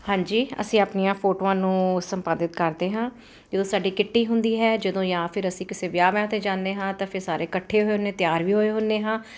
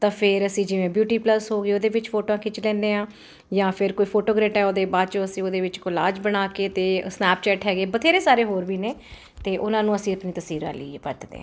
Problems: background sounds at intervals